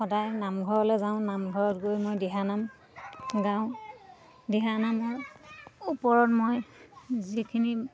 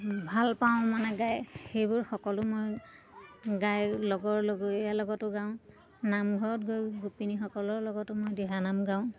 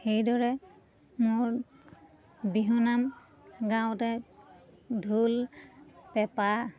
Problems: constant background noise, continuous background conversations